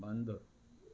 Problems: constant background noise